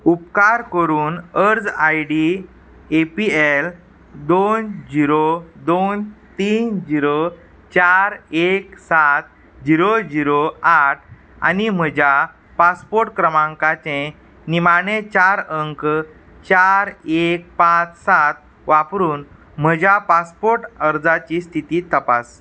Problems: constant background noise